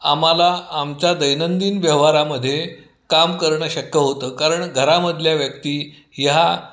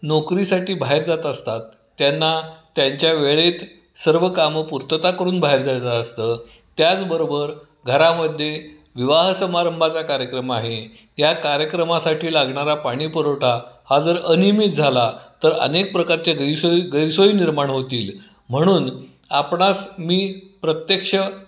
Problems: background sounds at intervals